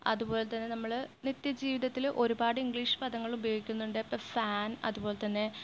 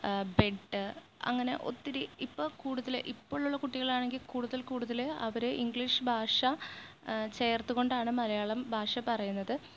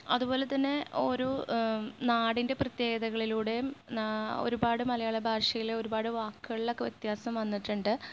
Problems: low volume